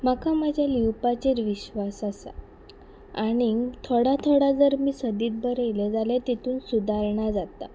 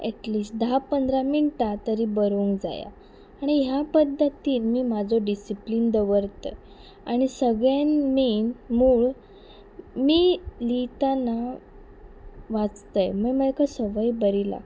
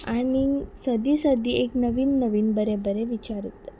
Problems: background sounds at intervals